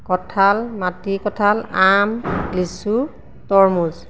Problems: constant background noise